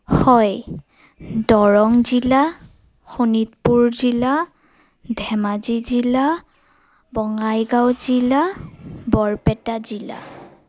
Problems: none marked